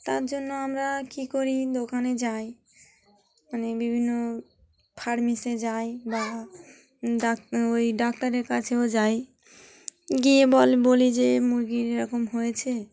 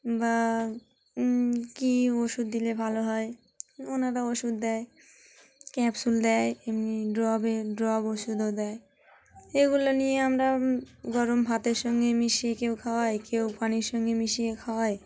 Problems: background sounds at intervals, continuous background conversations